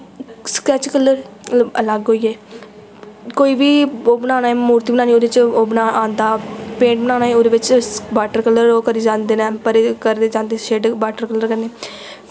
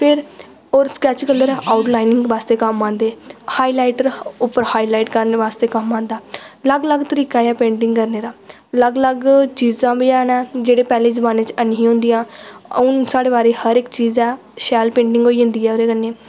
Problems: echo